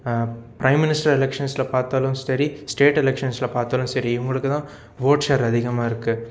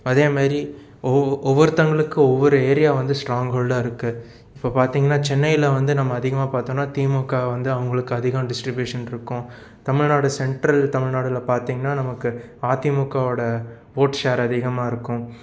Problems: none marked